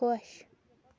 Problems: low volume